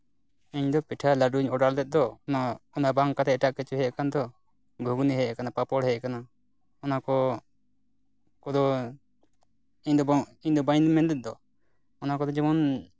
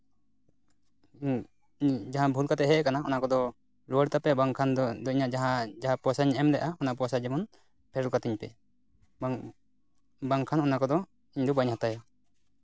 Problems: none marked